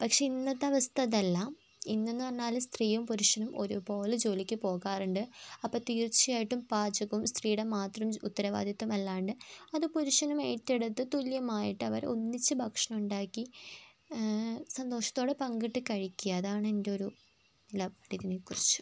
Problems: constant background noise, low volume